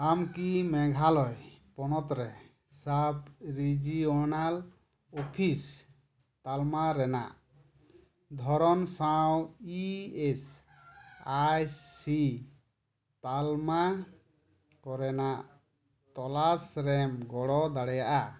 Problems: none marked